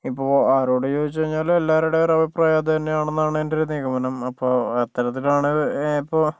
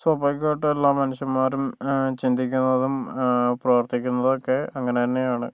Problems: low volume